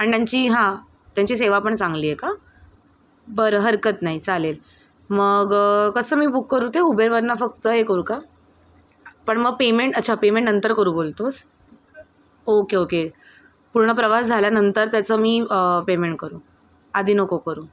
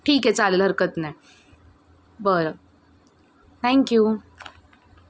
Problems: constant background noise, background conversations at intervals